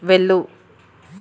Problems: constant background noise